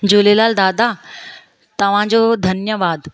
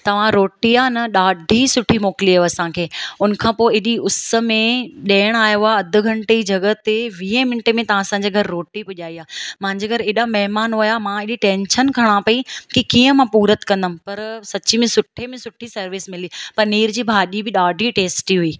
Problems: none marked